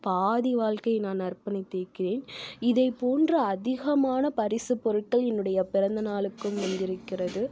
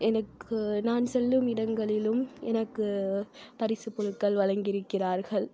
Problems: none marked